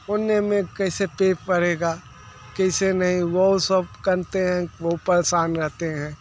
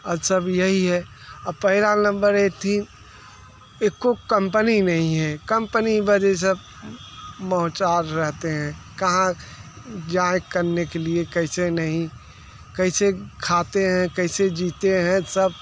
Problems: constant background noise